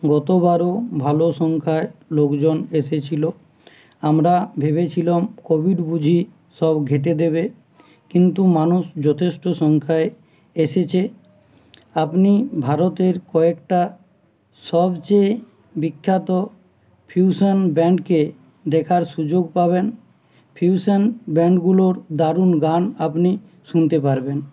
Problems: none marked